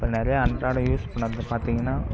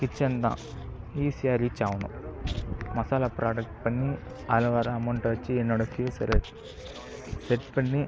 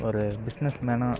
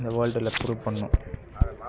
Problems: constant background noise